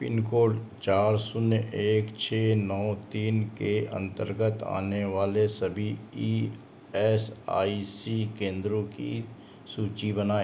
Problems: constant background noise